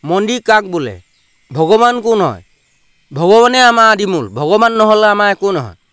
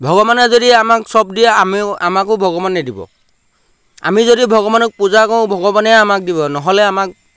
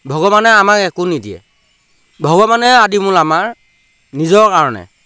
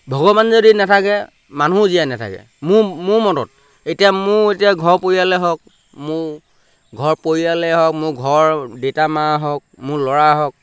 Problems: none marked